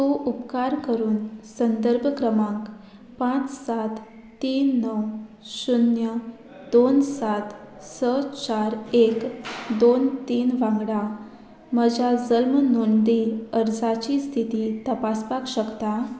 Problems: none marked